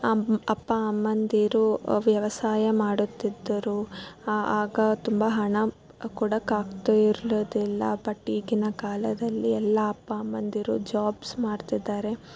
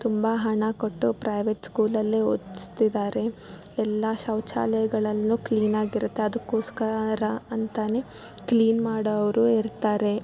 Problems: background sounds at intervals